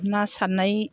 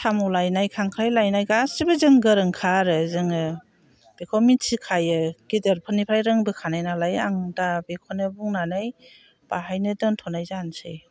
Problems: none marked